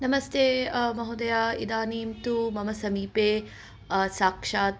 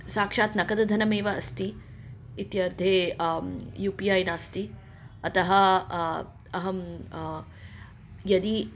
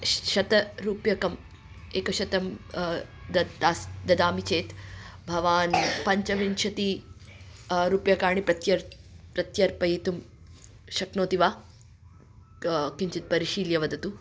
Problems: background sounds at intervals